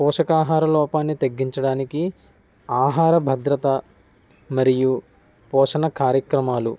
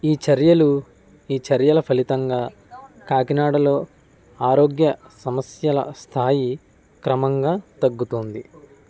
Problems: background conversations at intervals